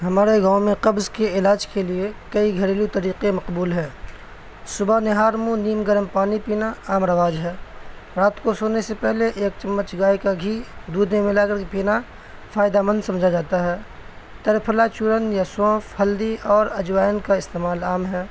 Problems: constant background noise